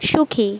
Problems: background sounds at intervals